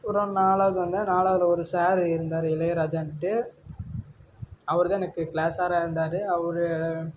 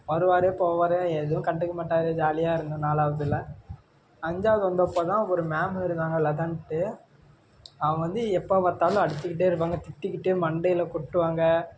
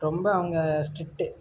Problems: low volume